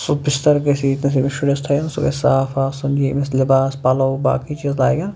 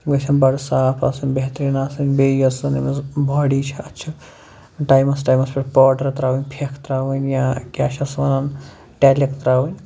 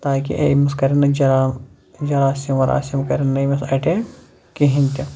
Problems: none marked